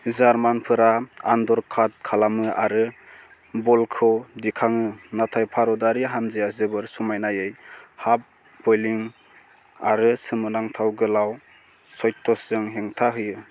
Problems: constant background noise